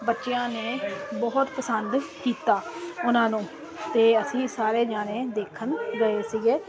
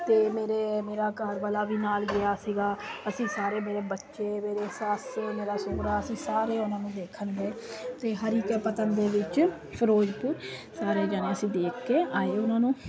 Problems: constant background noise